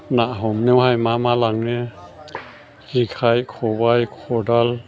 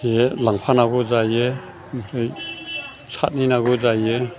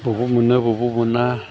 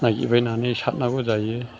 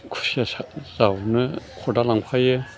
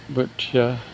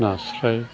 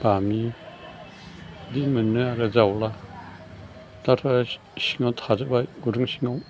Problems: constant background noise